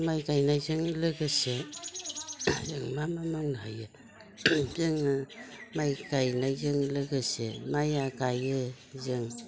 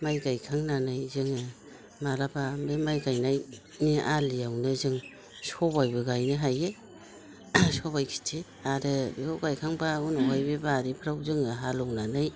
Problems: constant background noise